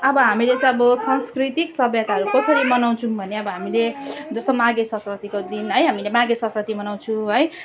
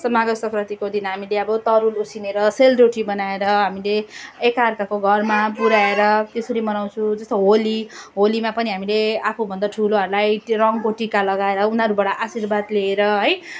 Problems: continuous background conversations